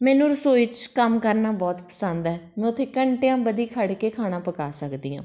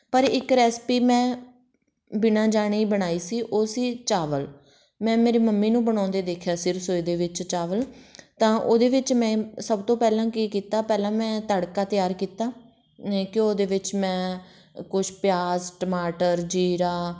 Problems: background conversations at intervals